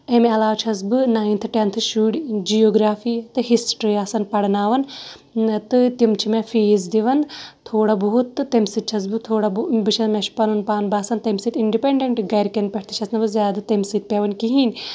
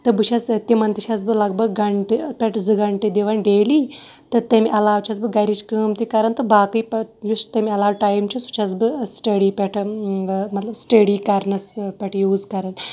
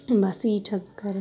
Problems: background sounds at intervals